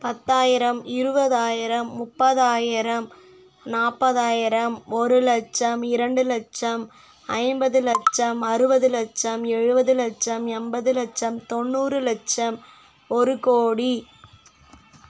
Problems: constant background noise